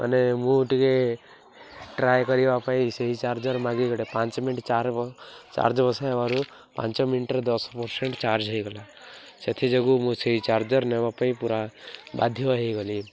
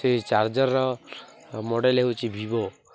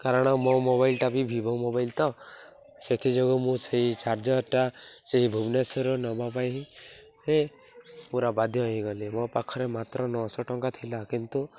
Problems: none marked